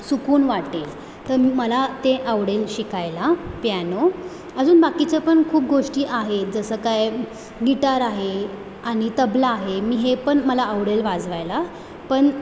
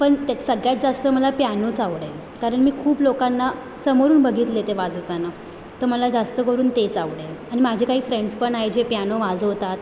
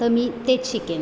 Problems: constant background noise